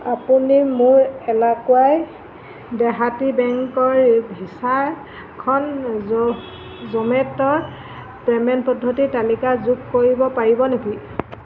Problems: none marked